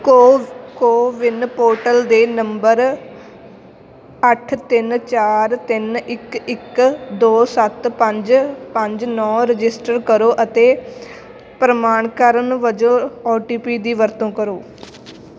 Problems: none marked